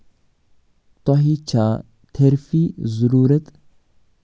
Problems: none marked